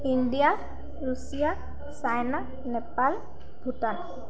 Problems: continuous background conversations